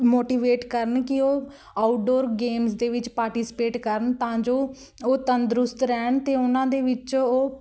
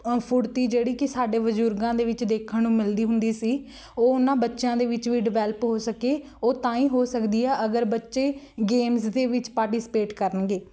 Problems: background sounds at intervals